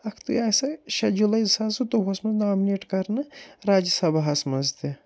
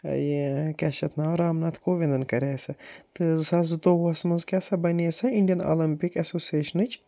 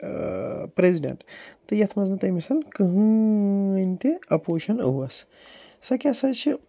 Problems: none marked